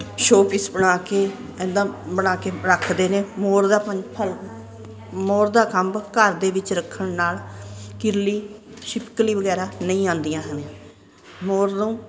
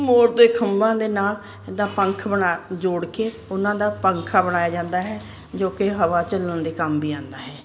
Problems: constant background noise